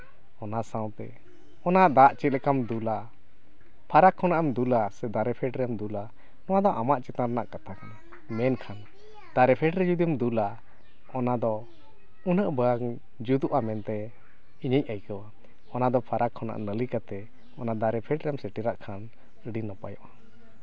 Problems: none marked